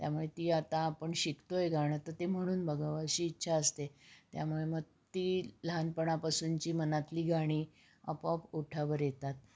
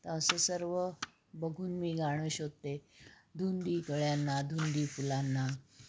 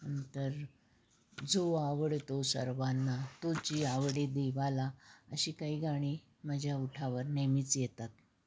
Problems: background sounds at intervals